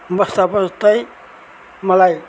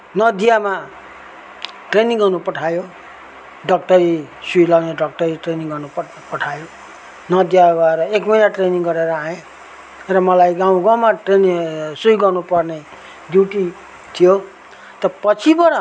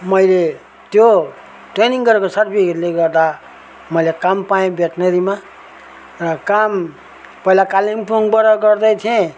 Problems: constant background noise